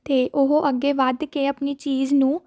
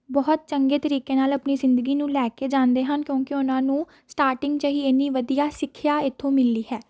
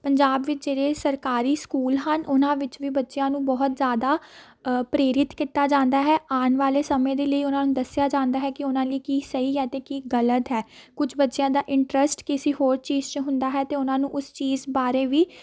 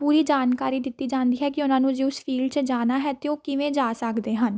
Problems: constant background noise, background conversations at intervals